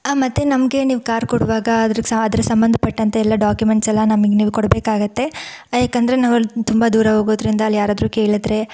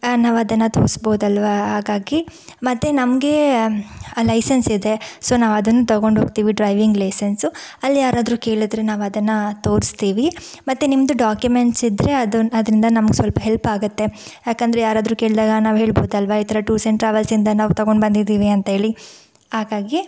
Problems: none marked